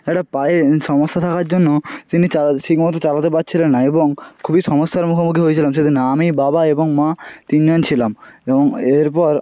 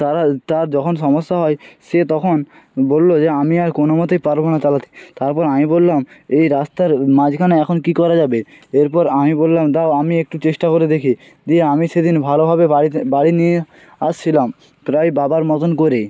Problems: none marked